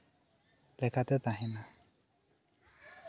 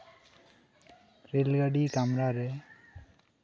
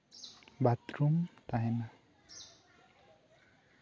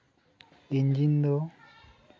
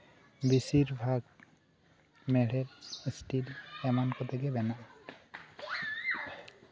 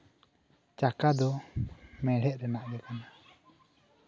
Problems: background conversations at intervals